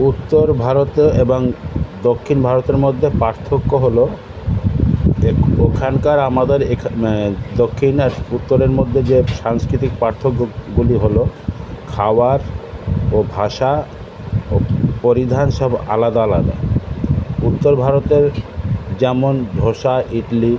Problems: constant background noise, continuous background conversations